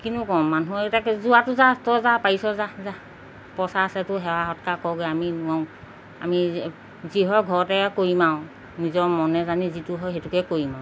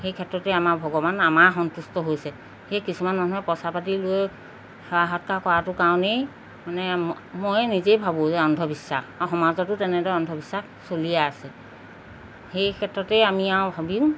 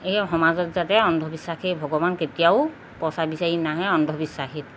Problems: background sounds at intervals